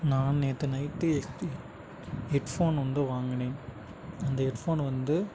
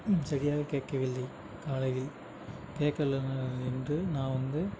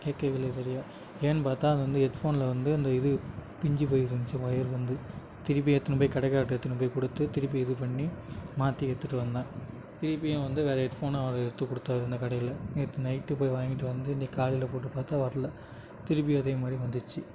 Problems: constant background noise